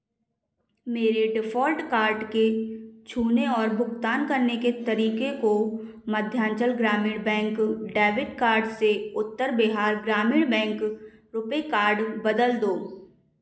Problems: echo